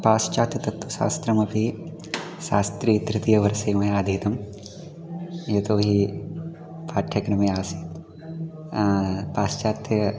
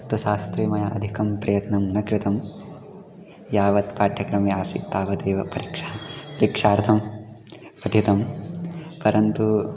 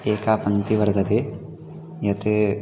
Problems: continuous background conversations